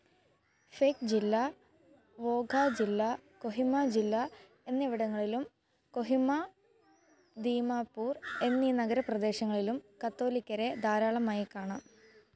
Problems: background sounds at intervals